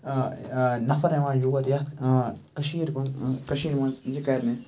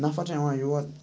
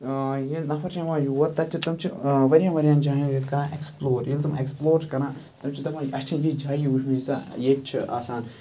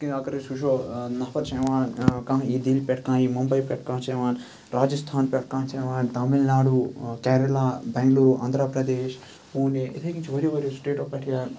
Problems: background sounds at intervals